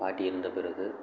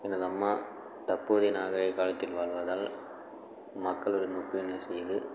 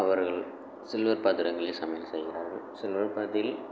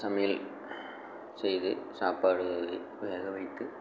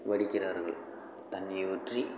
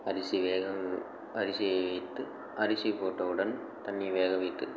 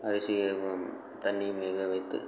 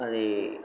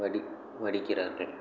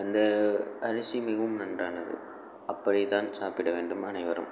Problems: constant background noise